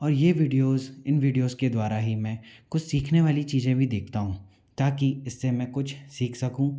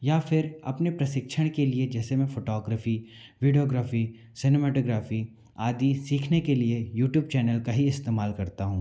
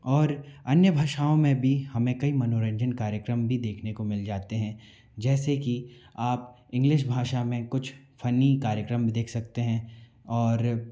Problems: constant background noise